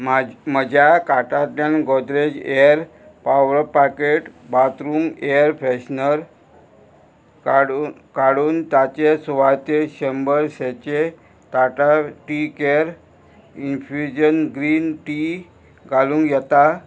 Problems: constant background noise